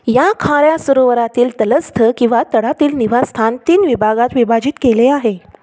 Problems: constant background noise